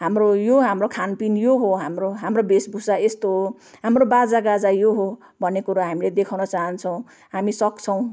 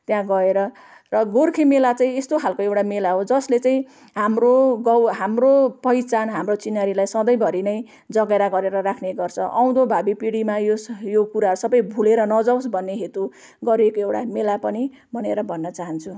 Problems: none marked